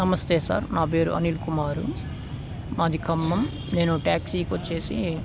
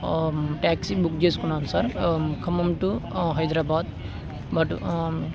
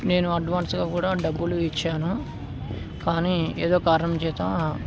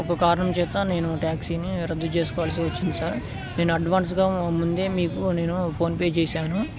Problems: constant background noise